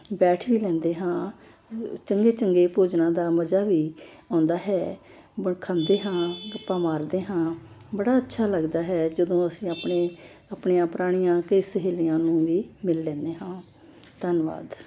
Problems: constant background noise